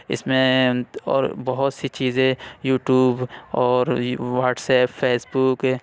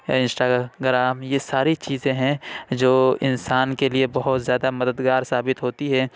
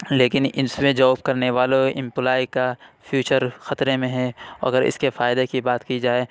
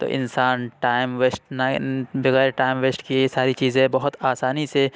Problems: none marked